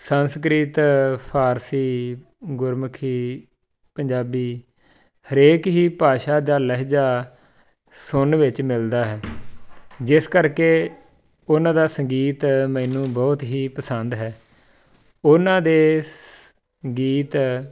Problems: background sounds at intervals